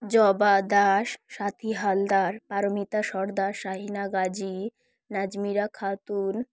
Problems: background sounds at intervals